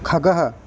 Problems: constant background noise